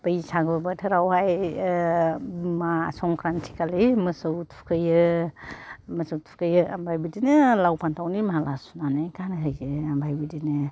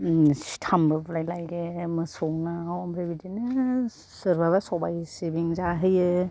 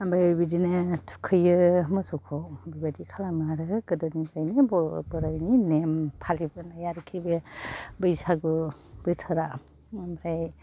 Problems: low volume